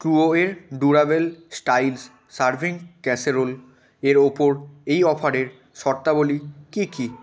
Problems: background conversations at intervals